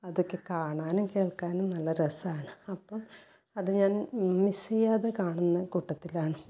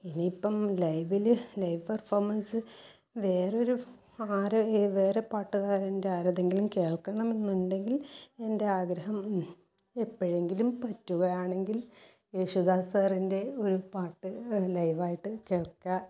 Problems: low volume